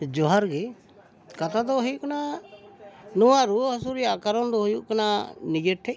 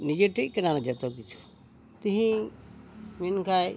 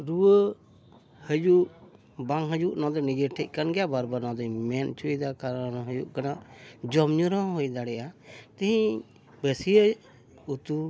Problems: constant background noise, background conversations at intervals